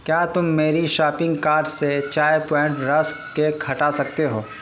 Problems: constant background noise